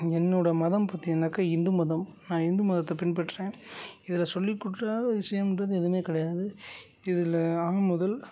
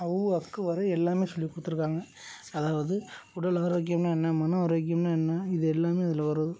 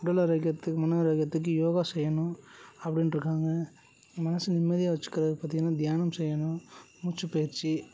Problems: constant background noise, low volume